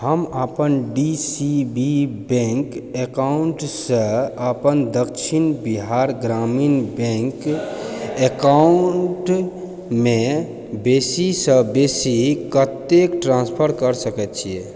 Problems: background sounds at intervals